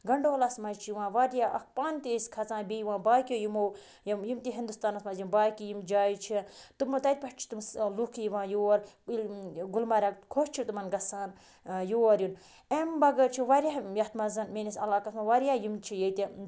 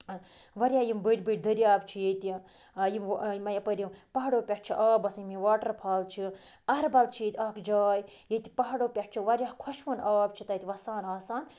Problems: background sounds at intervals